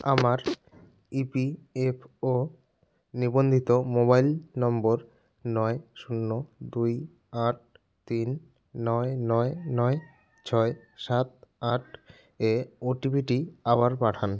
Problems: background sounds at intervals